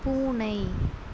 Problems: none marked